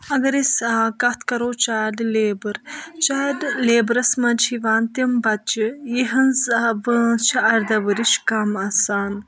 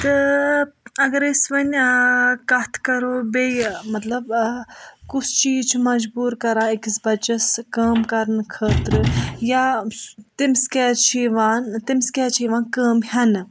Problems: none marked